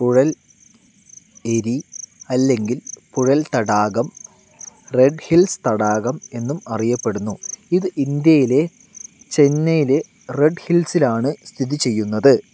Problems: constant background noise